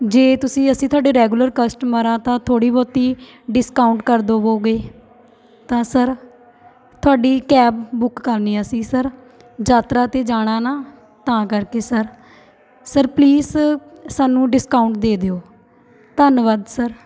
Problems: continuous background conversations